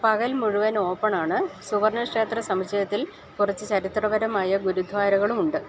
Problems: none marked